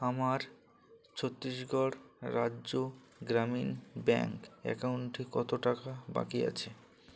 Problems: none marked